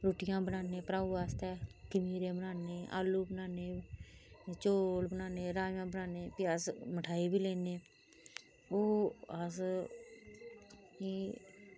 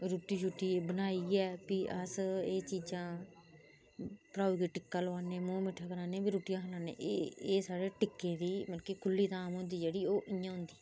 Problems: low volume